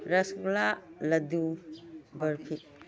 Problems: low volume